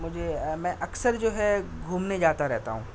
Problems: constant background noise